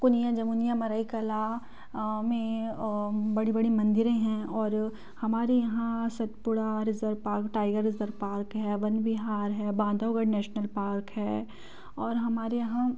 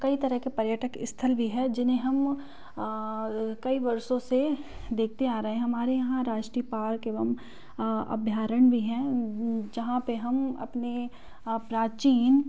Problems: background conversations at intervals